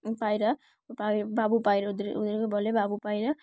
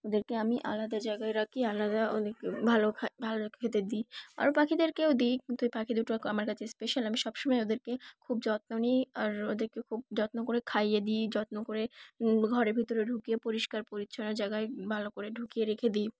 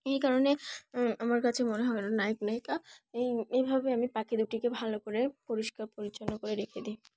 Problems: background sounds at intervals, background conversations at intervals